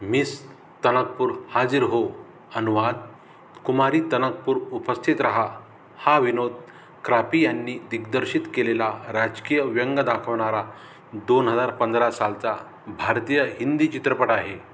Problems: background sounds at intervals